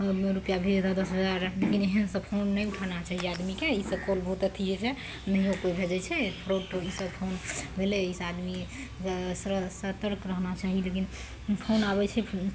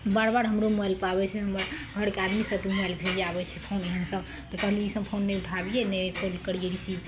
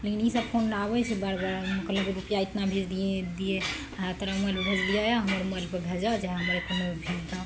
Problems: none marked